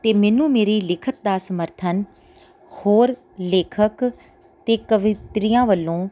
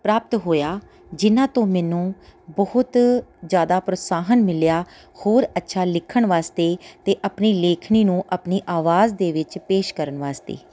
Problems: background sounds at intervals